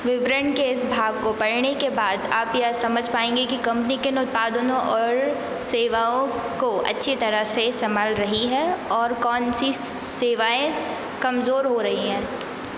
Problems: none marked